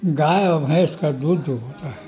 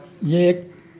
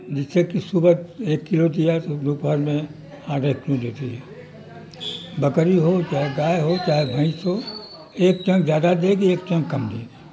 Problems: constant background noise